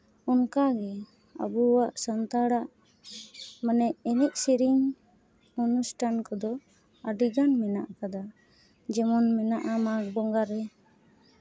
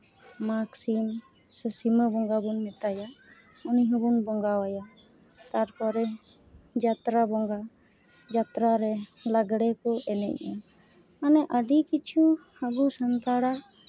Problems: background sounds at intervals